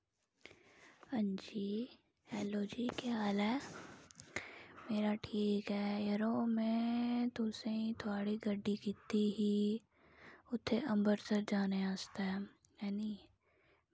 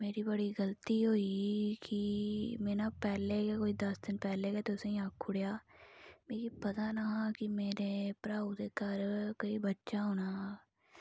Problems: low volume